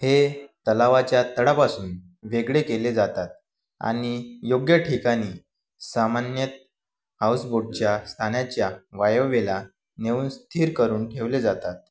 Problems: none marked